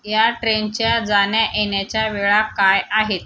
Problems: constant background noise